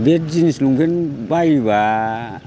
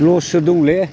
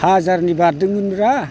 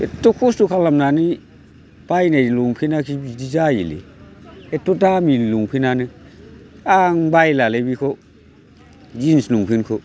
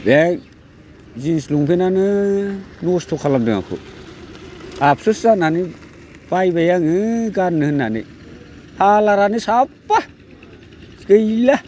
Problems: none marked